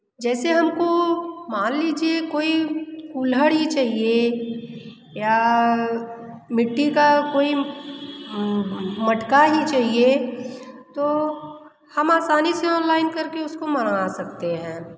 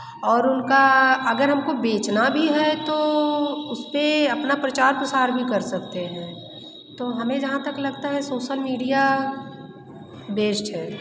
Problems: constant background noise, echo